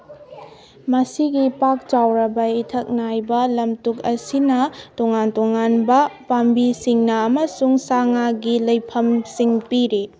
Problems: background conversations at intervals